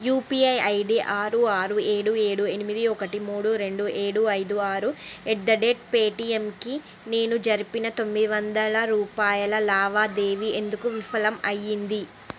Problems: background conversations at intervals